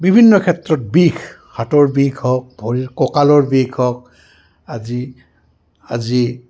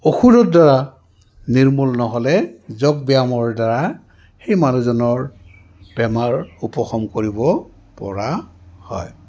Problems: background conversations at intervals